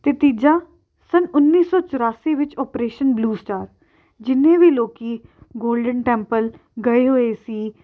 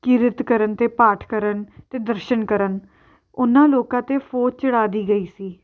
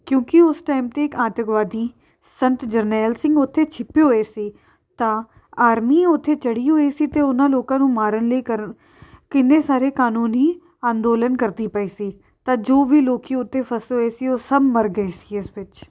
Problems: background sounds at intervals